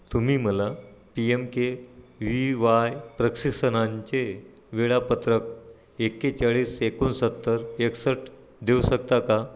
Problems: none marked